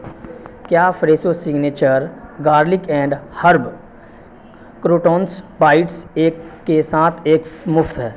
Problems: constant background noise